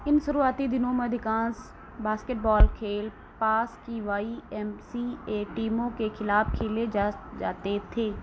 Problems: constant background noise